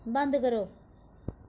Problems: echo